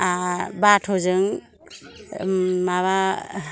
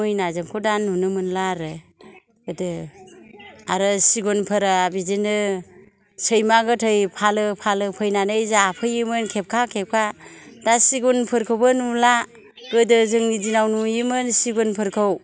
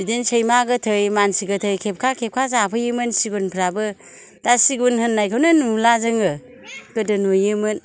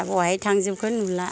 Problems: none marked